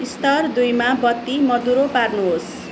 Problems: constant background noise